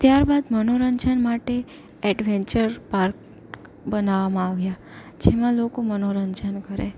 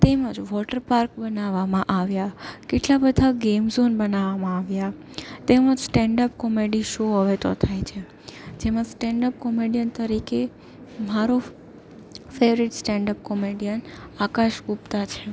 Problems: none marked